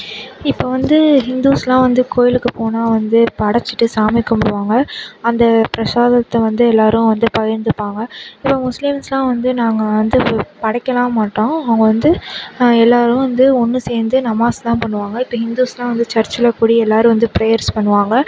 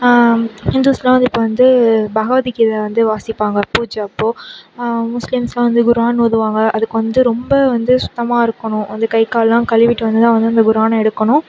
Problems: constant background noise